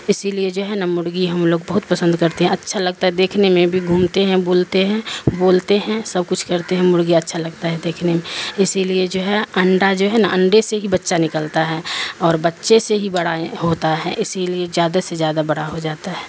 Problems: constant background noise